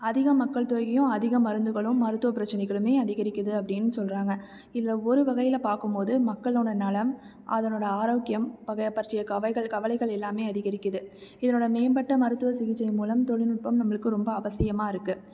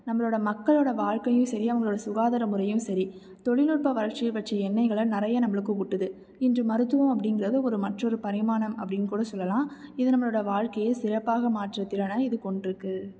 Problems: none marked